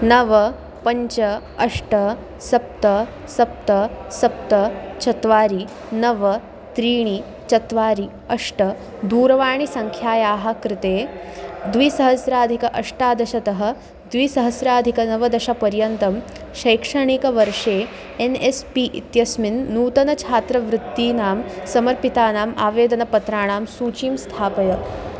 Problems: constant background noise